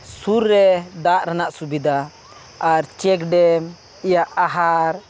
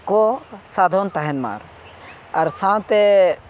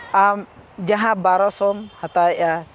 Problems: background sounds at intervals